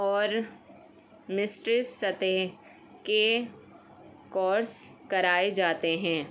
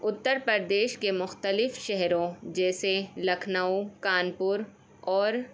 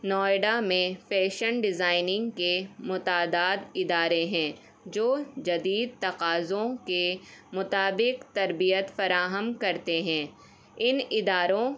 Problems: background sounds at intervals